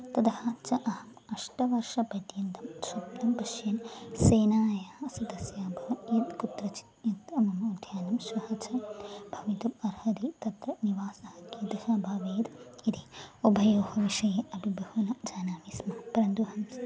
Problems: continuous background conversations